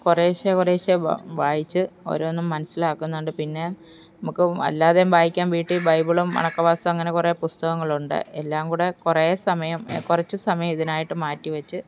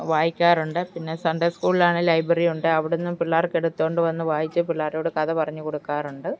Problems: background conversations at intervals